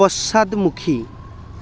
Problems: none marked